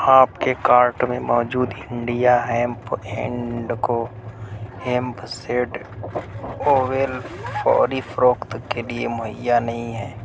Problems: constant background noise